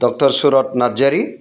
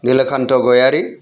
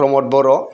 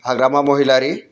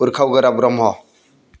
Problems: constant background noise